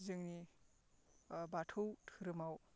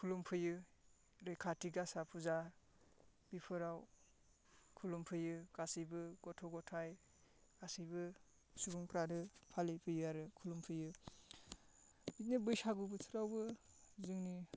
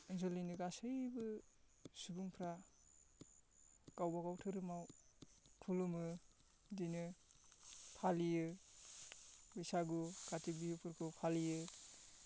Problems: constant background noise